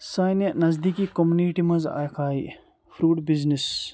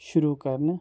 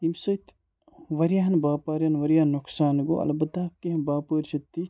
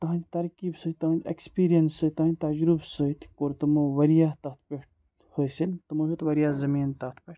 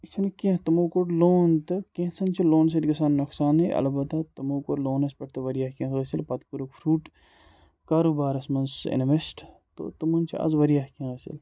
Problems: background sounds at intervals